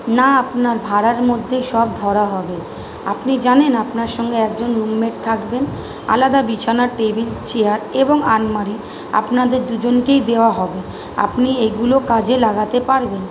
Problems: constant background noise